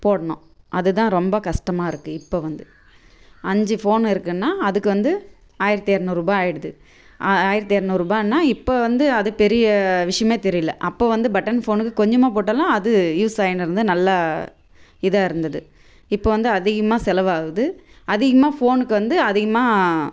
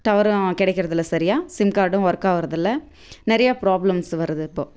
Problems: none marked